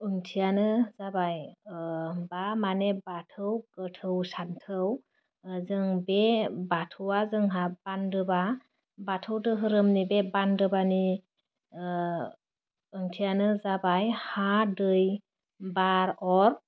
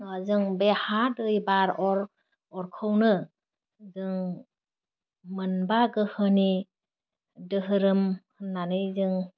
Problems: none marked